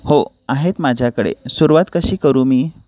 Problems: none marked